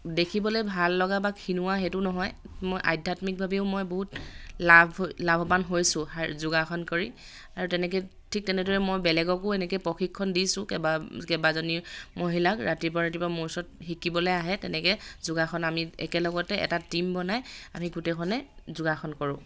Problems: none marked